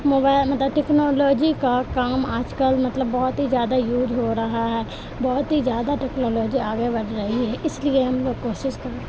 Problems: constant background noise